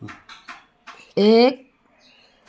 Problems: background sounds at intervals